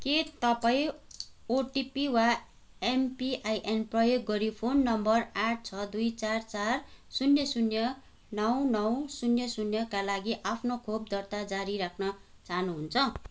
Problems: background sounds at intervals